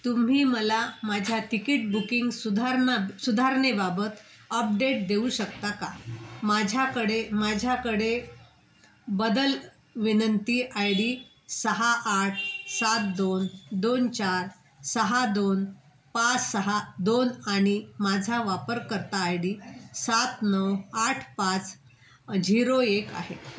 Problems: constant background noise